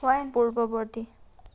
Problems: background conversations at intervals